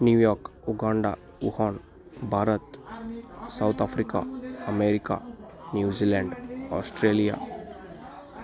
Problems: background conversations at intervals